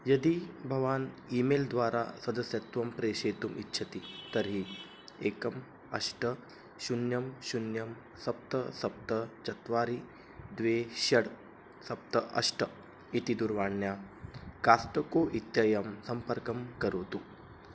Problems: low volume